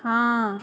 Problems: constant background noise